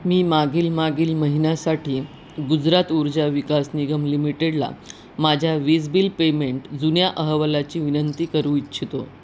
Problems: none marked